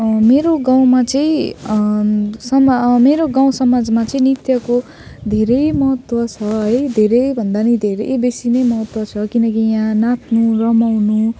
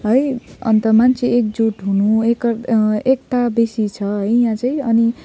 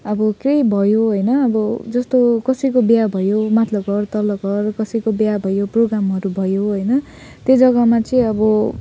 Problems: none marked